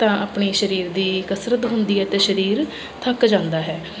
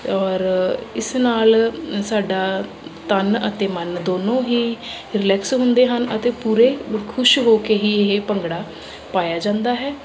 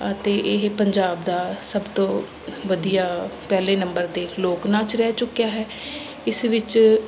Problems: constant background noise